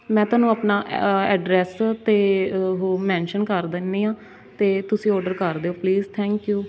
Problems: none marked